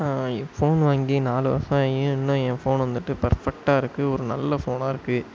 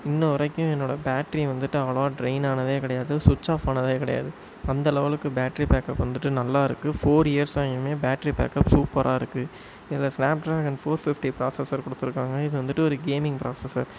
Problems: constant background noise